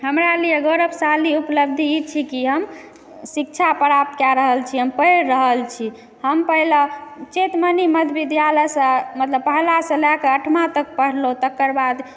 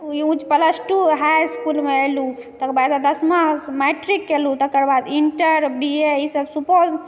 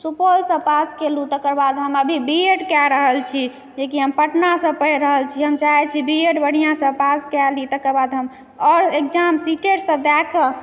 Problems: background sounds at intervals, echo